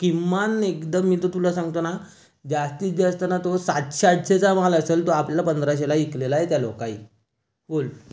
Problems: background sounds at intervals